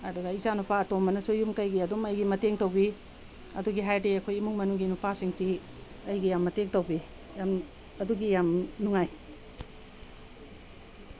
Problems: constant background noise